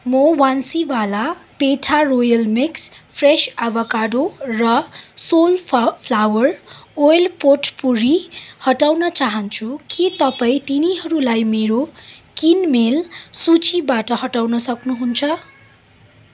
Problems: none marked